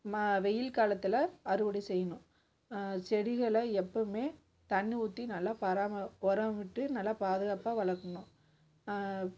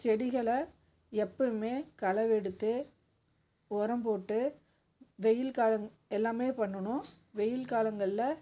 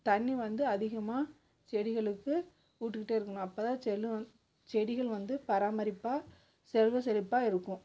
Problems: background sounds at intervals